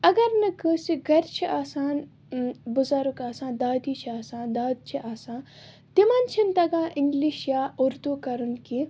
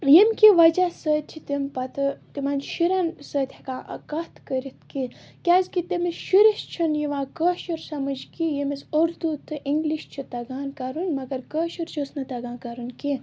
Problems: constant background noise